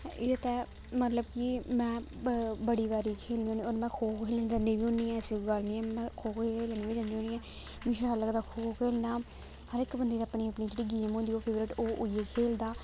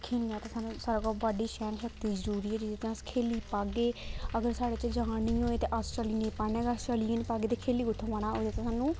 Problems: constant background noise